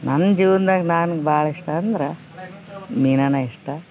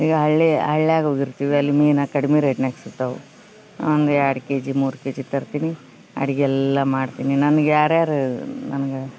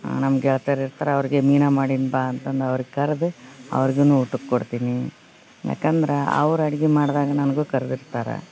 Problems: background sounds at intervals